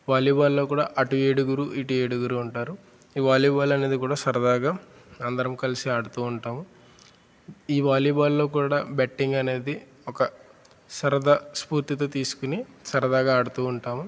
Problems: constant background noise